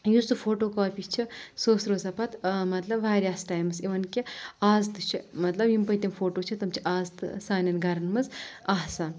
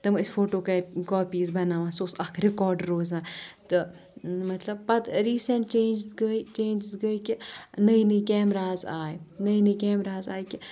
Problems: none marked